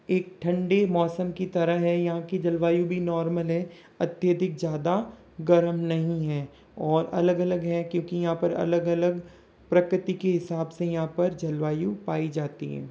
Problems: none marked